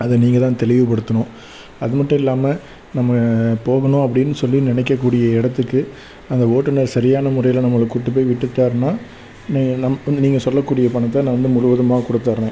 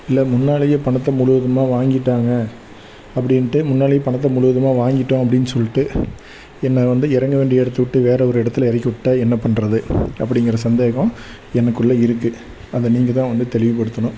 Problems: background sounds at intervals